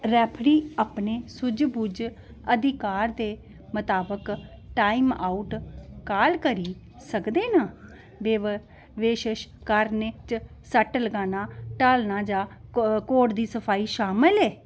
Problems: background sounds at intervals